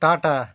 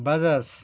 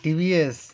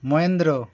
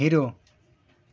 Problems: background sounds at intervals